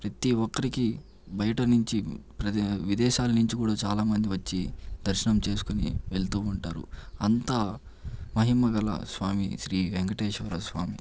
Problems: none marked